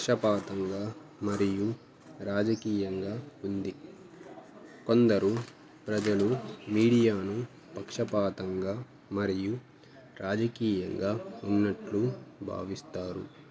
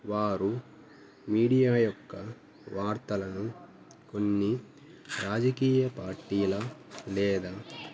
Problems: background sounds at intervals, background conversations at intervals